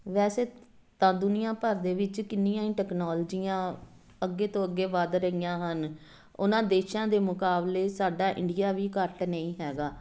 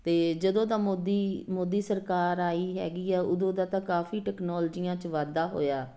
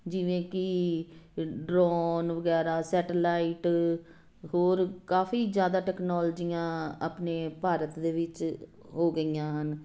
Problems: none marked